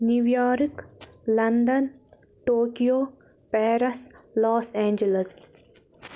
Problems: none marked